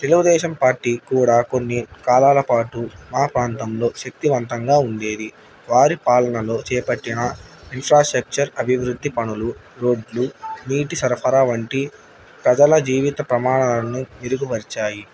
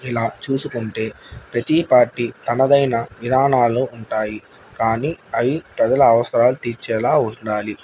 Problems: none marked